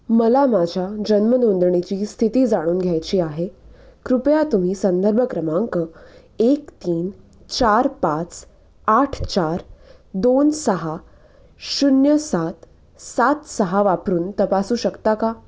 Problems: constant background noise, background conversations at intervals